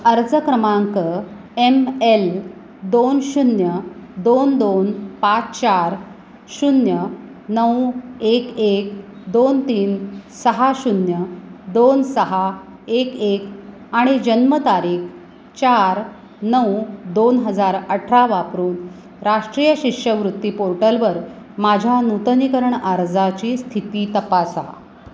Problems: constant background noise